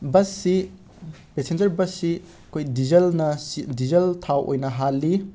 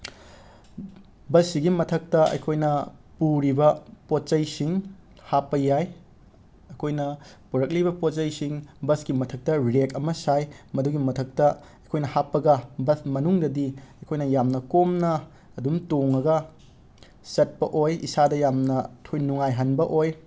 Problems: constant background noise